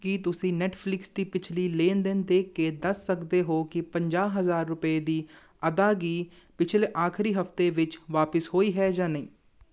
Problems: none marked